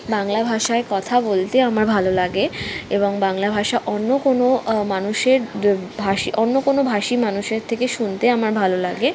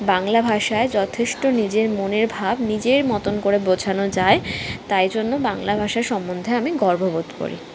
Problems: constant background noise, continuous background conversations